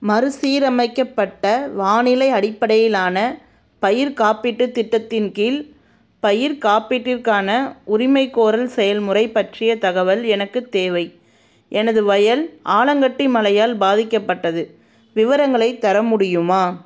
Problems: none marked